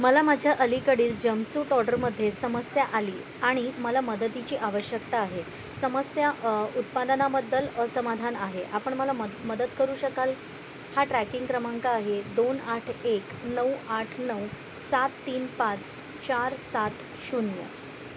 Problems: none marked